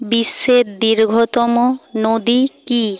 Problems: constant background noise